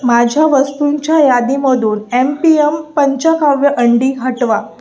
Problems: constant background noise